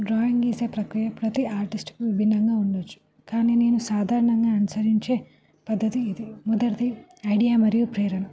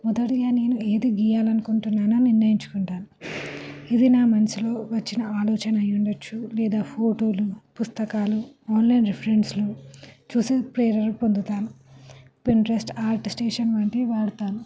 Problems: constant background noise, continuous background conversations